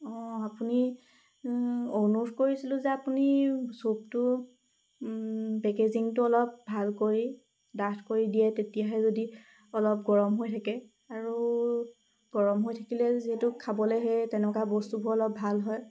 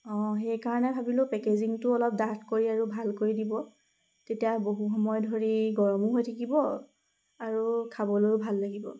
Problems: background sounds at intervals